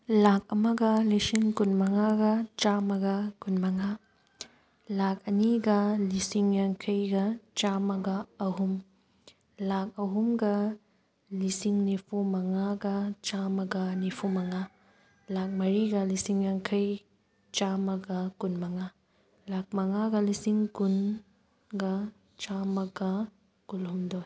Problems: background sounds at intervals